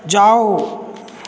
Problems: none marked